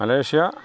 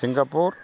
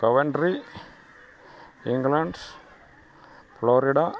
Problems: background sounds at intervals